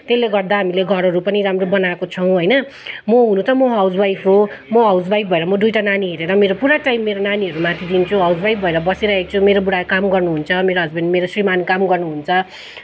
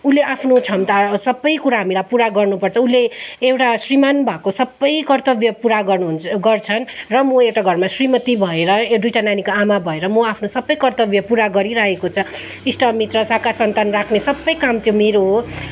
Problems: none marked